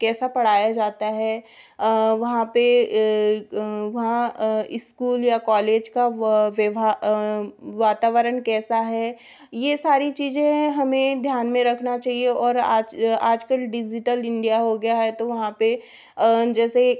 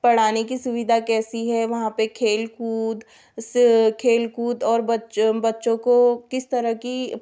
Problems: background sounds at intervals